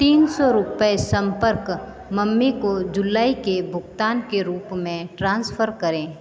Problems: continuous background conversations